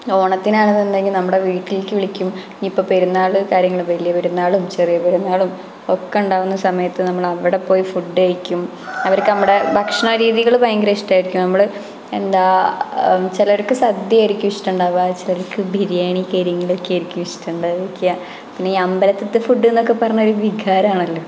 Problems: background sounds at intervals